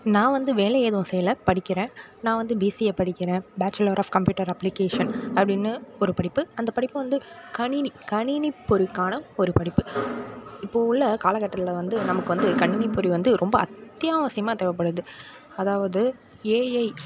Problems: background conversations at intervals